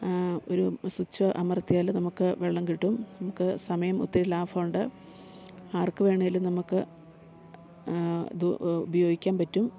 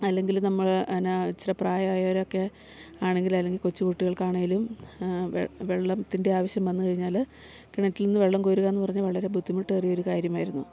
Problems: none marked